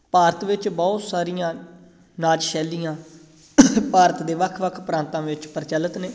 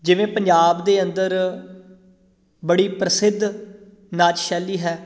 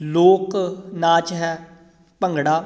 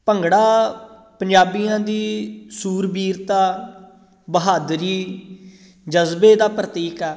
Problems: none marked